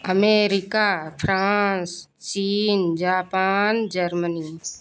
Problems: none marked